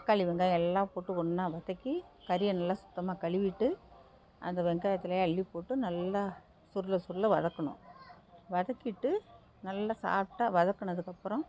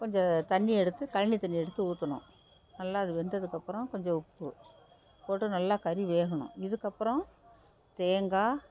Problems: background sounds at intervals